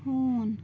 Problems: constant background noise